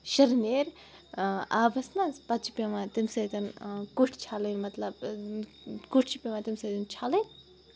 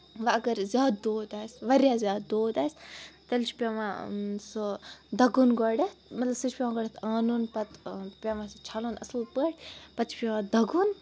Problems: background sounds at intervals